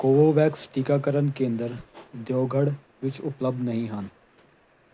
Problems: background sounds at intervals